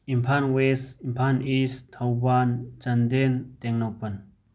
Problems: none marked